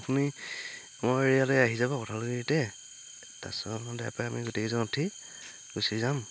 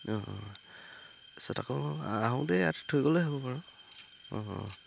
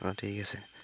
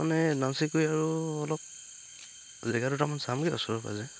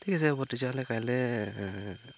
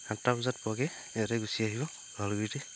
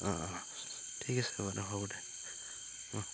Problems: constant background noise